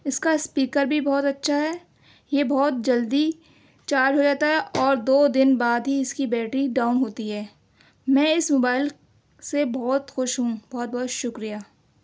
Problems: none marked